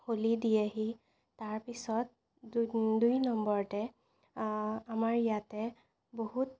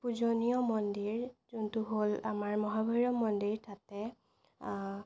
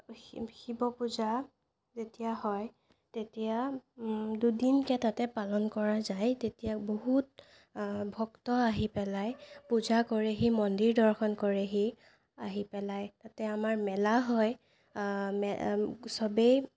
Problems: none marked